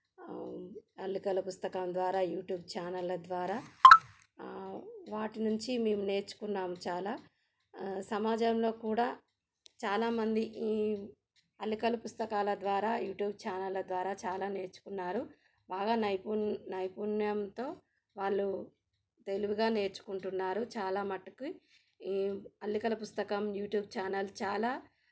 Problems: background sounds at intervals